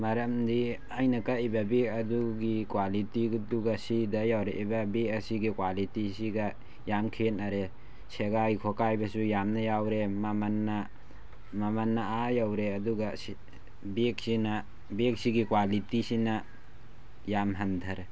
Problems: constant background noise